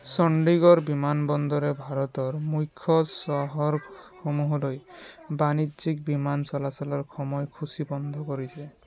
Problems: background sounds at intervals, background conversations at intervals